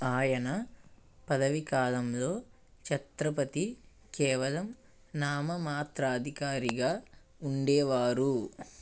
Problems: none marked